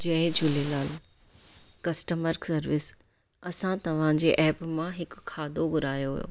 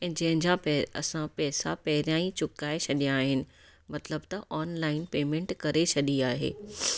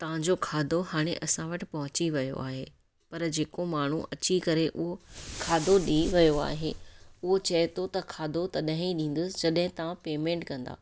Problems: background sounds at intervals